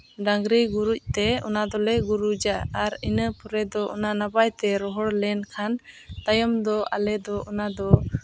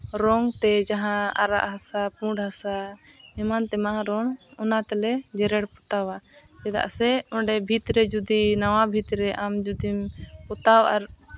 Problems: none marked